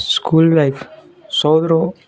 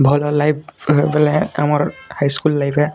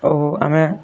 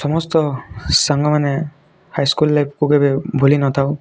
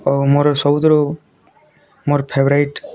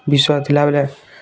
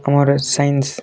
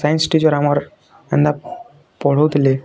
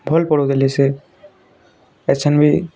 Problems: constant background noise, continuous background conversations